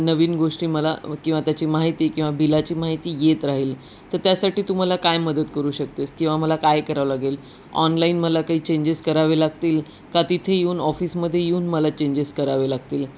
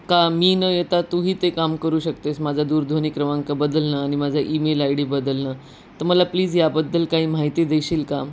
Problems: constant background noise